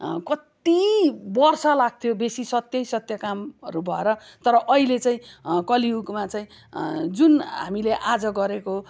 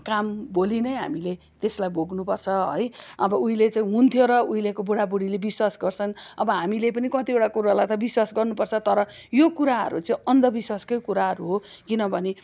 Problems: background sounds at intervals